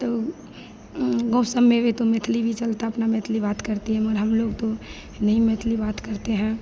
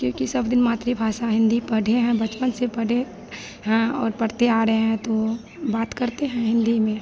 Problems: none marked